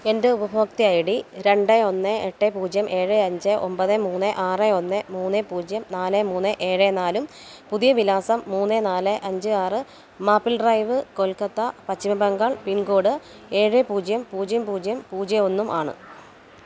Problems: constant background noise